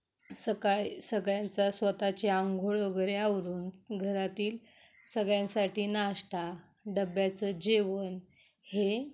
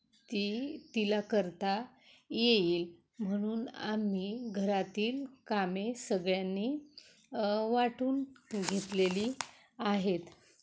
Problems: none marked